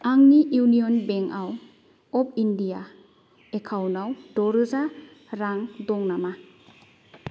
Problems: none marked